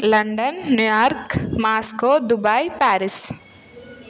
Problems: none marked